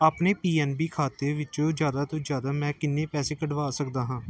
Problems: background conversations at intervals